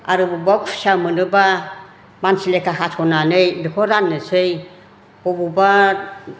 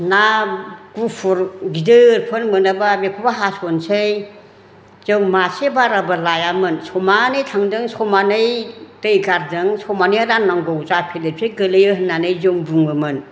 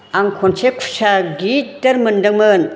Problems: constant background noise